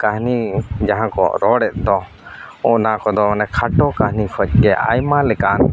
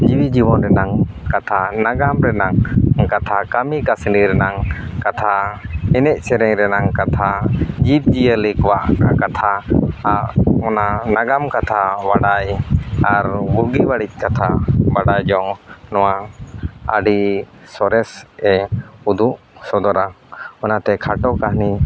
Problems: none marked